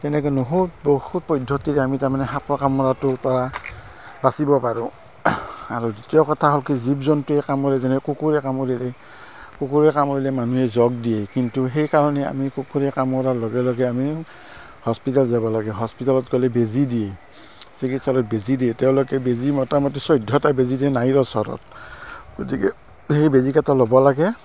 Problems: constant background noise